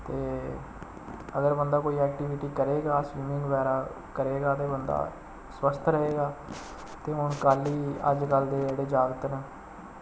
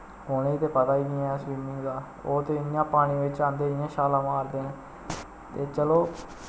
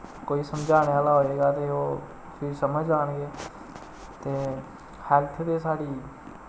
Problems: constant background noise